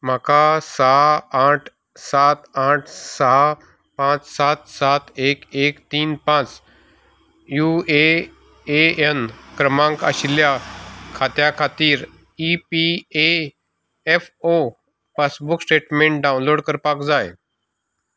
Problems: background sounds at intervals